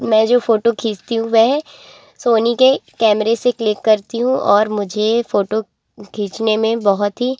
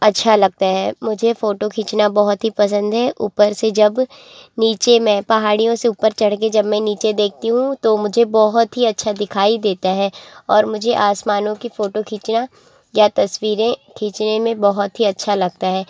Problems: constant background noise, continuous background conversations